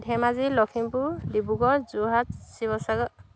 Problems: background sounds at intervals